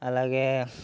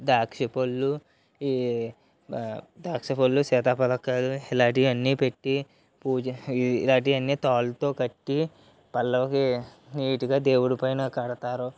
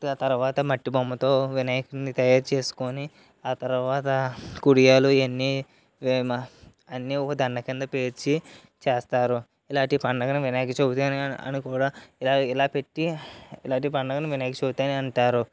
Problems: none marked